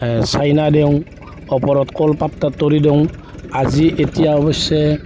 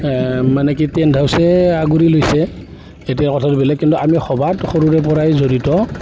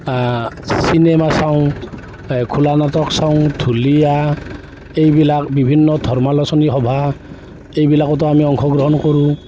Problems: background sounds at intervals